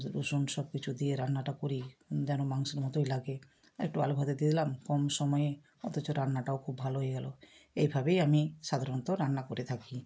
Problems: none marked